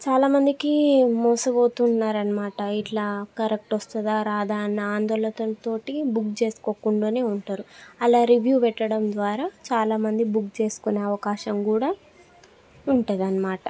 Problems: background conversations at intervals